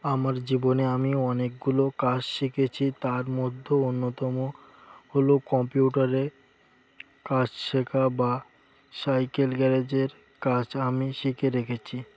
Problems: background sounds at intervals